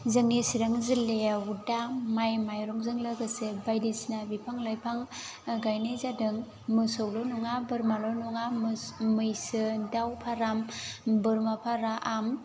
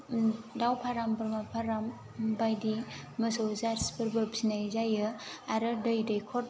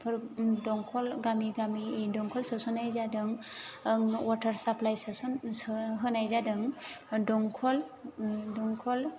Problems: constant background noise